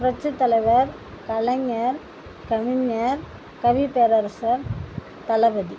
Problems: constant background noise